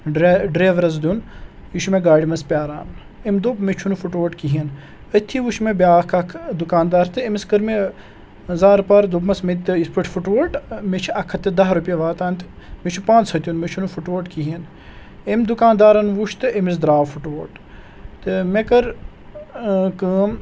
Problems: background sounds at intervals